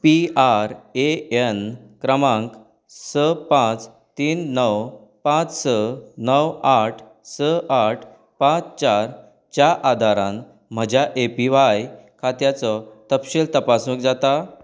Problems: background sounds at intervals